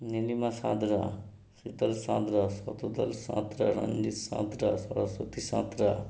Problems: none marked